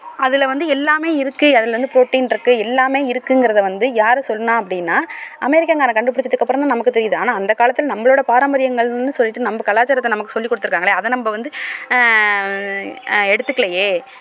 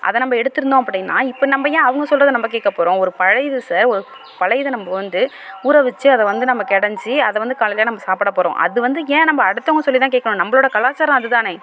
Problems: constant background noise